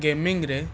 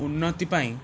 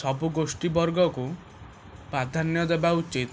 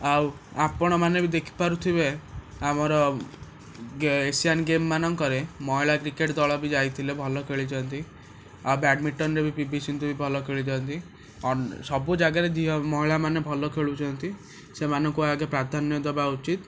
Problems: constant background noise